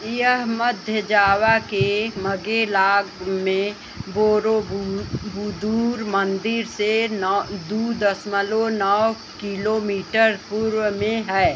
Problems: constant background noise